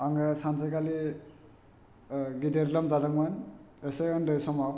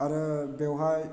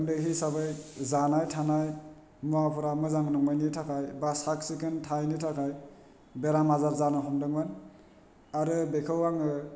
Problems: none marked